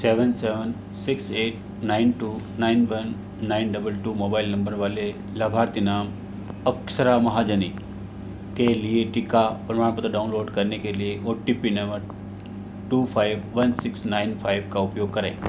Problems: none marked